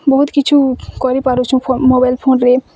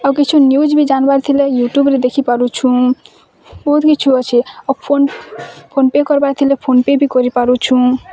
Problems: constant background noise, continuous background conversations